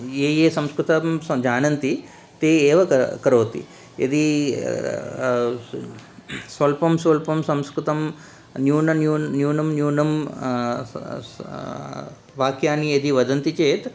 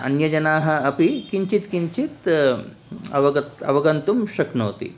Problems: none marked